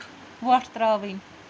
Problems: constant background noise